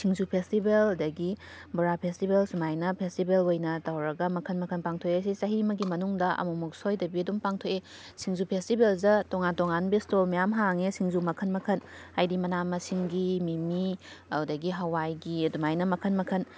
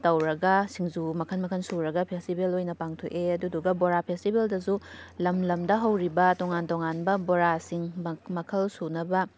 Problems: background sounds at intervals